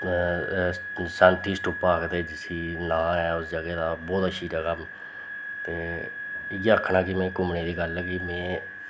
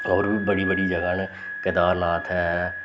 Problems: constant background noise